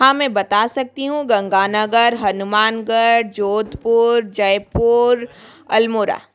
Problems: background sounds at intervals